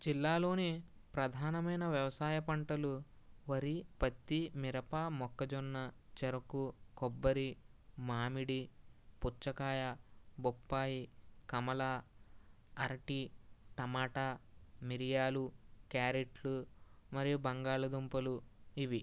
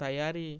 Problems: none marked